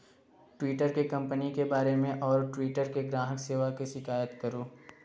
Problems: constant background noise